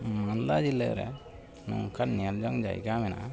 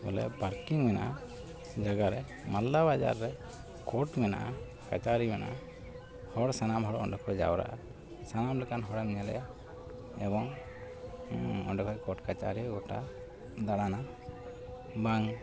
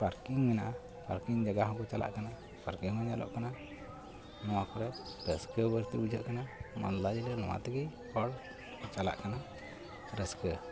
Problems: constant background noise, continuous background conversations